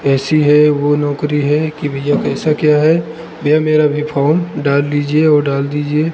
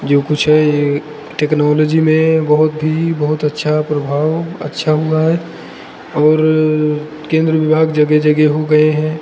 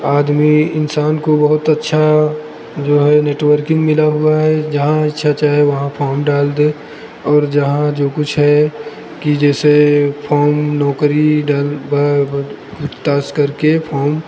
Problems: constant background noise